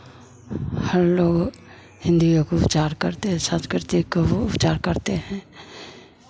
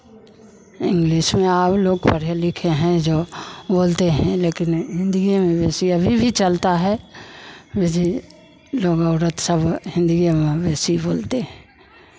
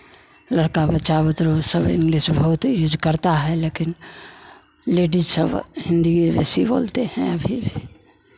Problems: constant background noise, background conversations at intervals